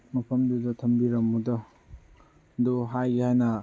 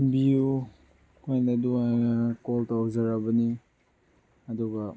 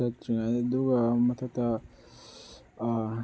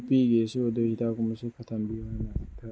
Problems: background sounds at intervals, low volume